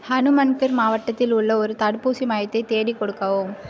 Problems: none marked